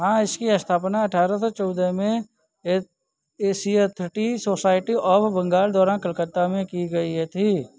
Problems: background sounds at intervals